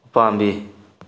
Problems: low volume